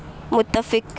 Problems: constant background noise